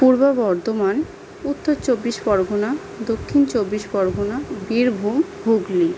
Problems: none marked